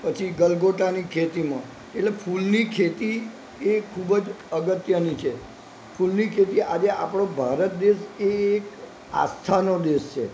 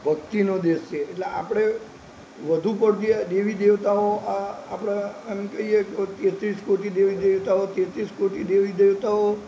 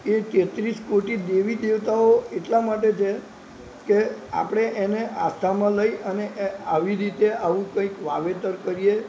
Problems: constant background noise